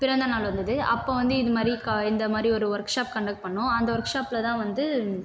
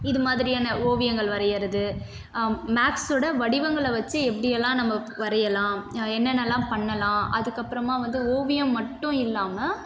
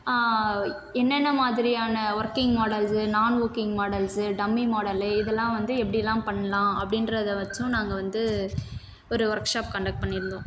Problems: constant background noise